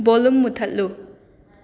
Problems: continuous background conversations